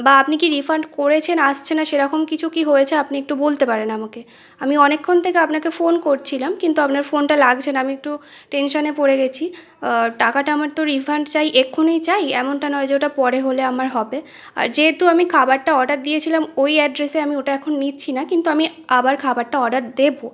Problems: none marked